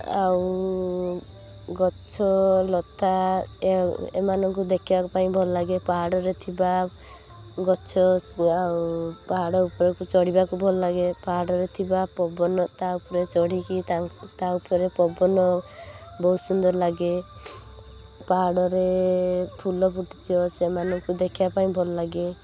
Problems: constant background noise